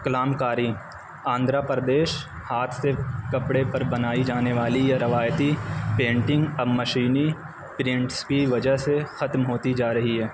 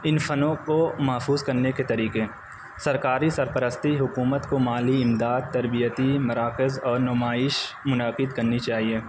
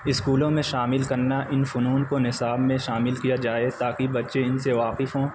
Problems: constant background noise